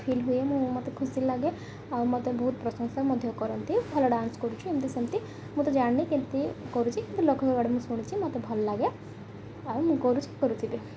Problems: none marked